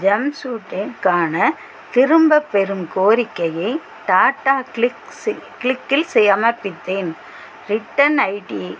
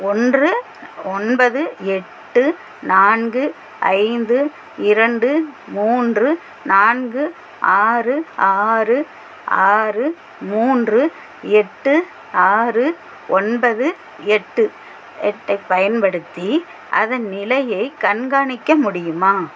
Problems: constant background noise